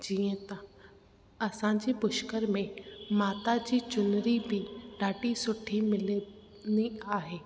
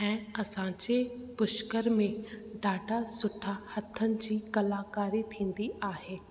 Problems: constant background noise, echo